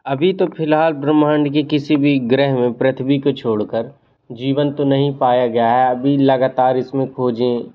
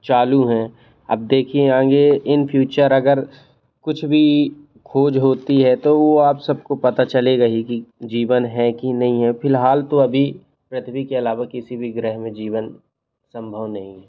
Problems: background sounds at intervals